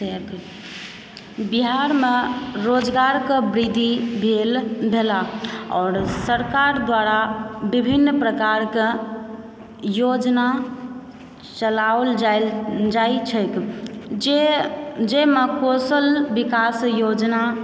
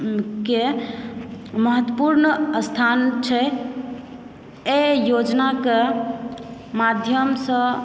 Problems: background sounds at intervals, background conversations at intervals